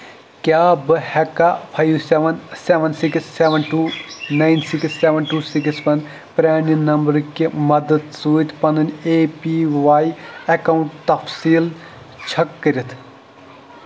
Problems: constant background noise